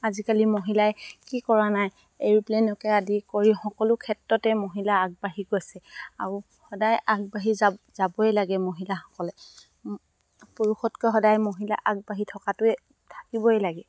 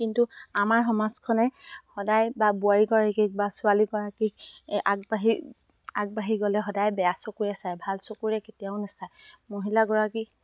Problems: constant background noise